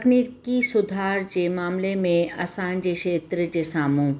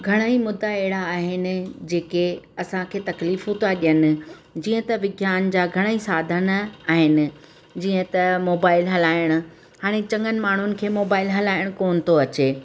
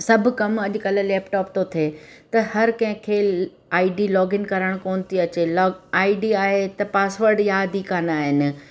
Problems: constant background noise